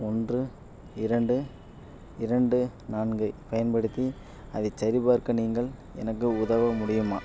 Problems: background sounds at intervals